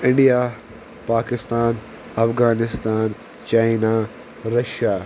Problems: constant background noise